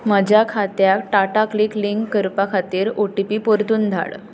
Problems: constant background noise